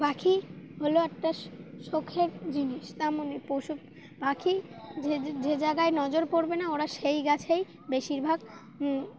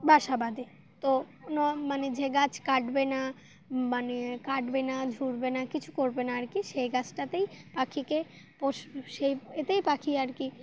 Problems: none marked